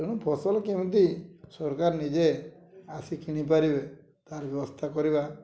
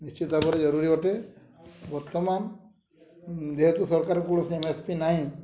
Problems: low volume